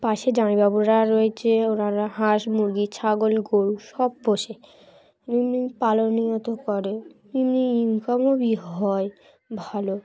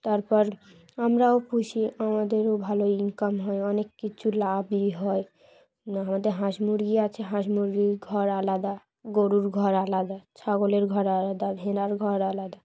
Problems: none marked